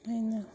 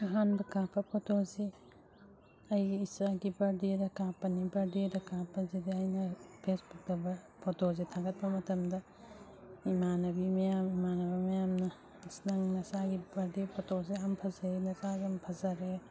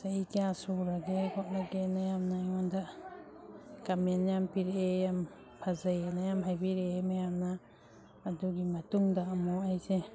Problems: background sounds at intervals